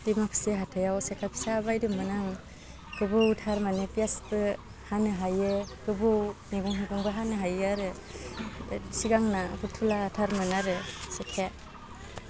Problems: constant background noise